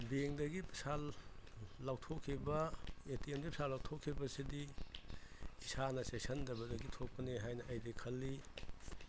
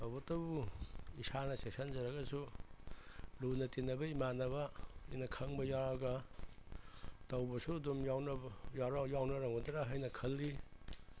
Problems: constant background noise